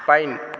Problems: none marked